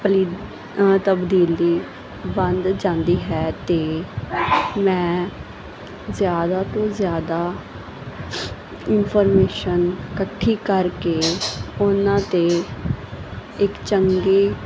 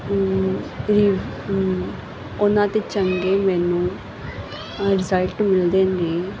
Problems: constant background noise, background conversations at intervals